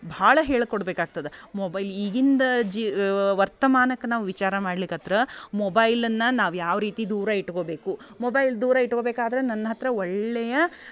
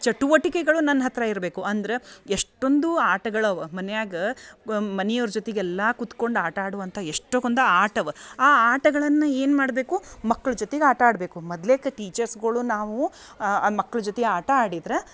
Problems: background sounds at intervals